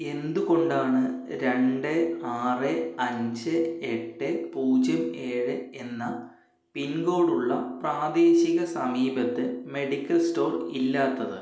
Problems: echo, low volume